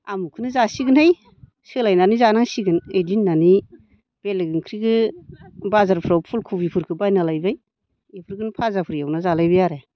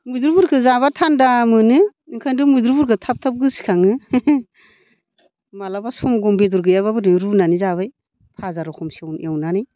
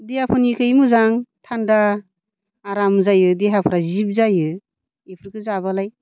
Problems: low volume